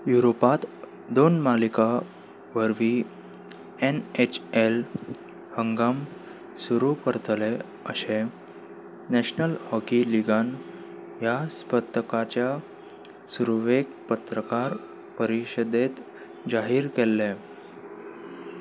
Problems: none marked